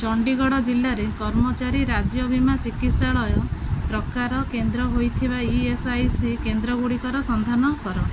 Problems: none marked